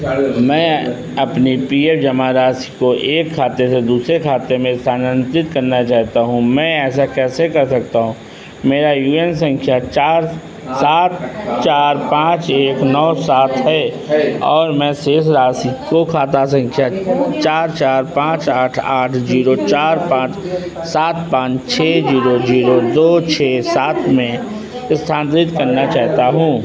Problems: constant background noise